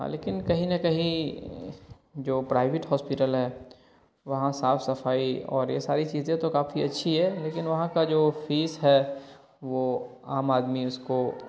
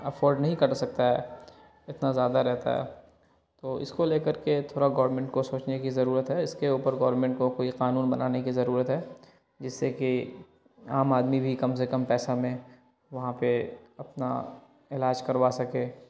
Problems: constant background noise